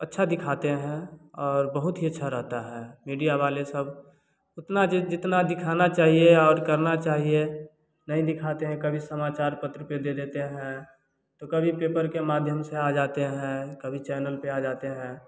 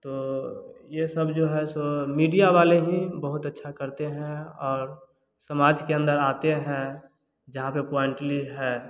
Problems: none marked